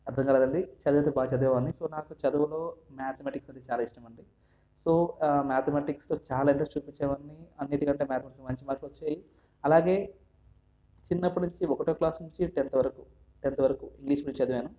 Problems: none marked